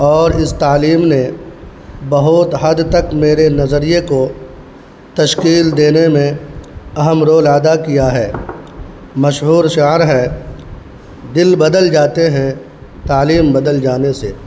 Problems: constant background noise